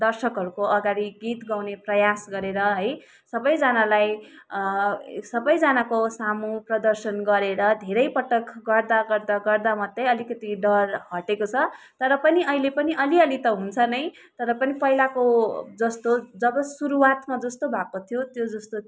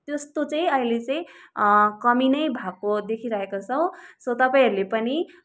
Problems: background sounds at intervals